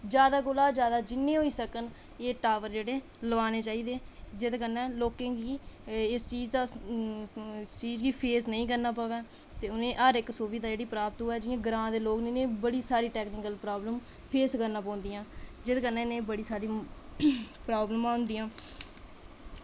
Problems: constant background noise